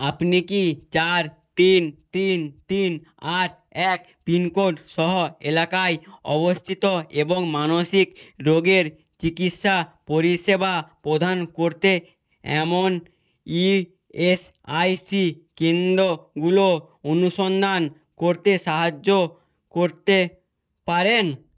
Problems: none marked